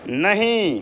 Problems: none marked